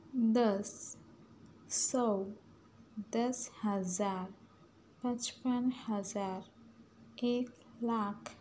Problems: none marked